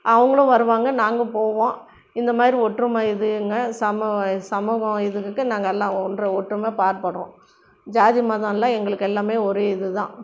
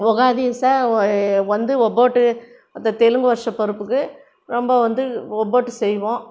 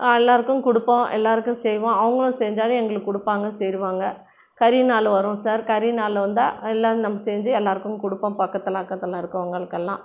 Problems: none marked